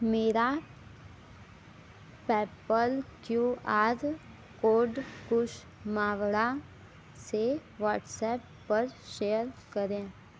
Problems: none marked